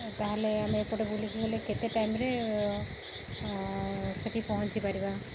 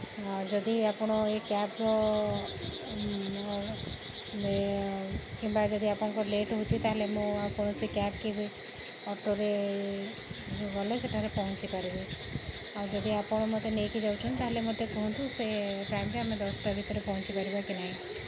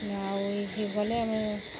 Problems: background sounds at intervals